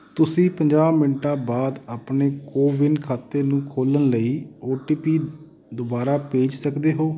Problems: constant background noise